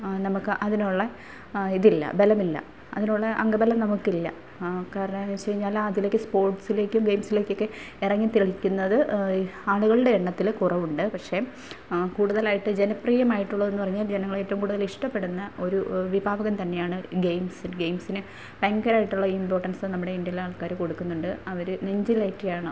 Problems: none marked